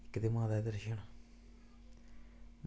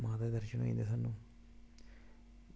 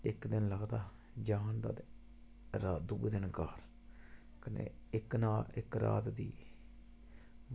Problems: constant background noise, low volume